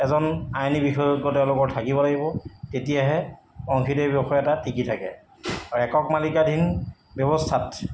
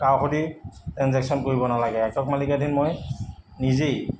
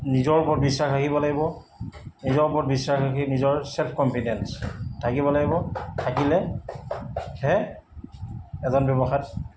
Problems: background sounds at intervals